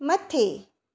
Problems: echo